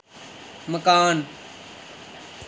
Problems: constant background noise